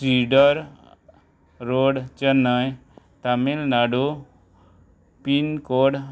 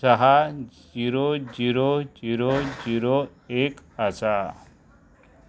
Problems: background sounds at intervals